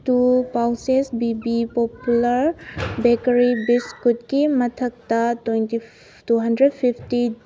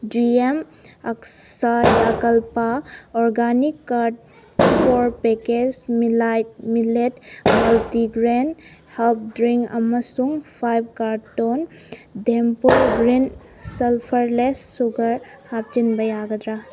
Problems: background sounds at intervals